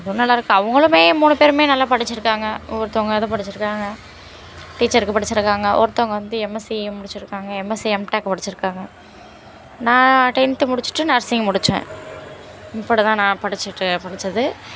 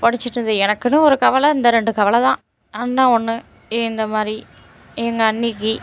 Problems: constant background noise